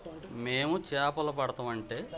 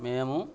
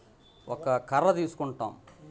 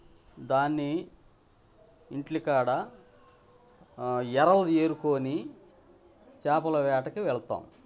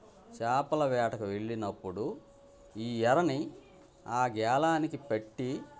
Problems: background sounds at intervals, background conversations at intervals